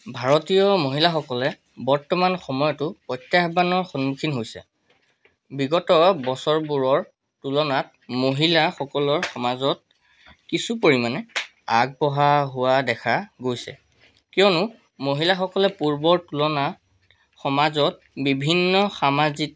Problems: none marked